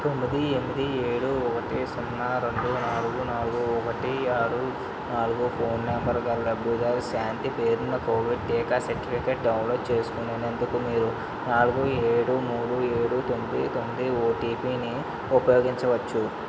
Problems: constant background noise